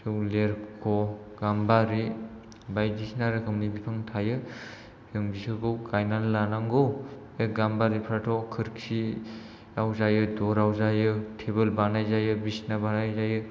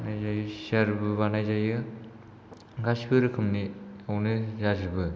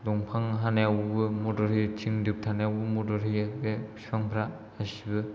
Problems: low volume